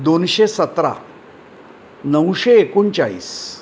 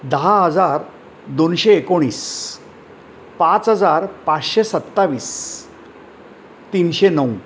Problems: constant background noise